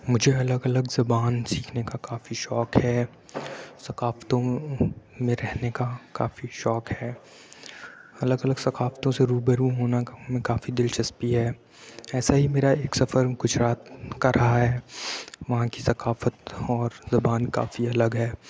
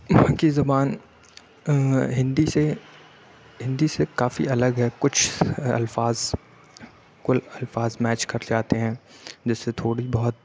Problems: none marked